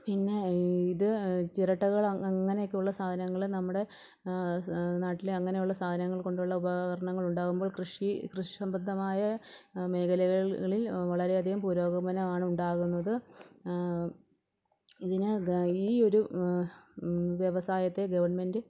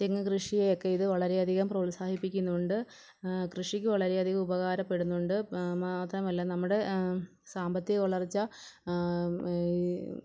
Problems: background sounds at intervals, low volume